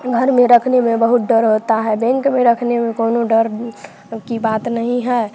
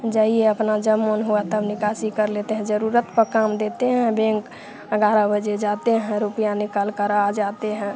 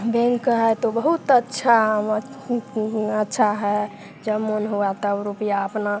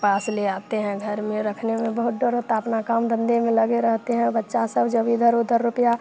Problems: constant background noise, background conversations at intervals